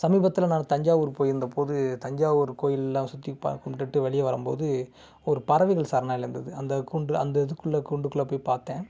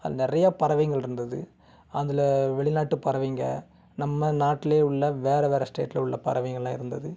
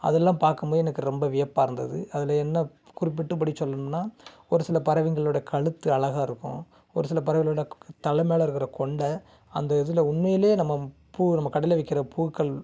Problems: background sounds at intervals